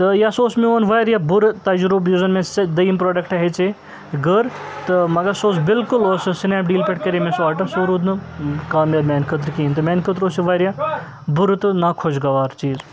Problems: constant background noise, background conversations at intervals